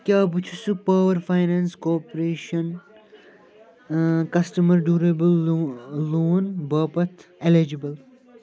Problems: none marked